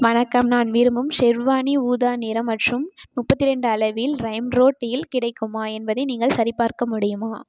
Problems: background sounds at intervals